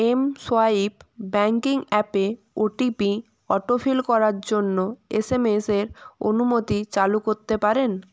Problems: constant background noise